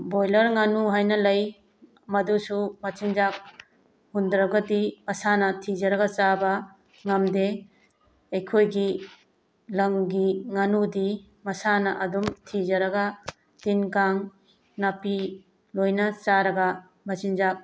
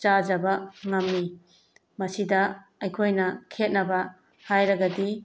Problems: background sounds at intervals